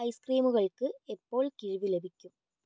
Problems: low volume